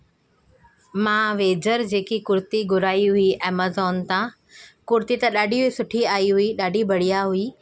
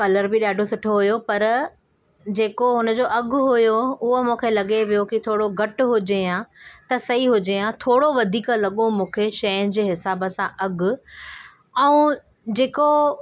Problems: none marked